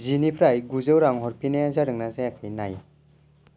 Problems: none marked